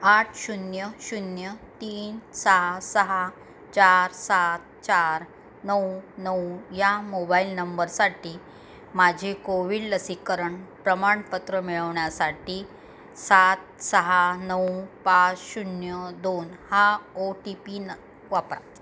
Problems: background sounds at intervals